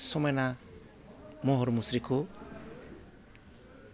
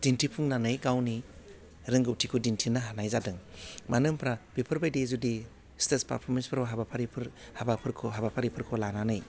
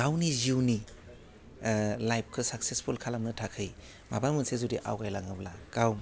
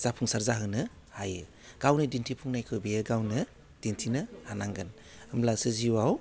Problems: low volume